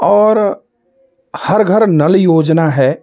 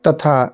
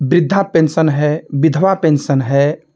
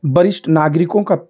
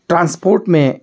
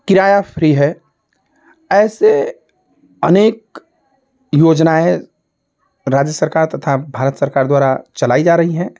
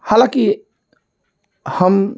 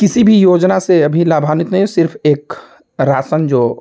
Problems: constant background noise